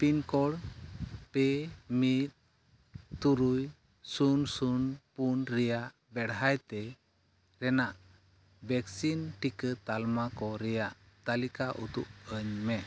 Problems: none marked